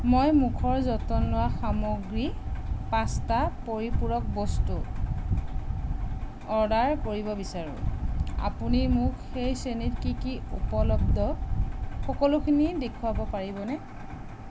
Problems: constant background noise